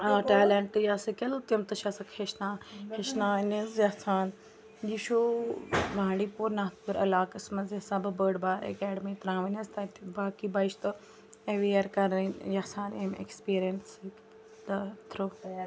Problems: constant background noise, continuous background conversations